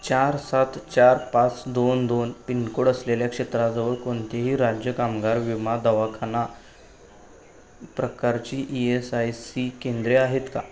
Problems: none marked